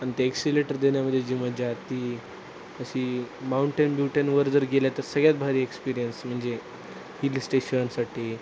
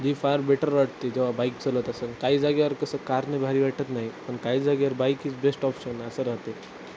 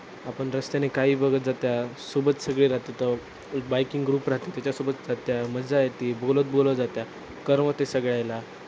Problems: none marked